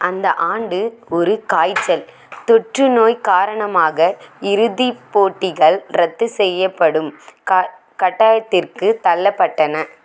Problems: none marked